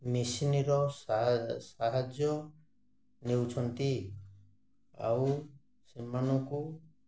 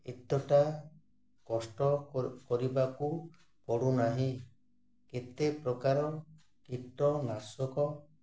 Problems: none marked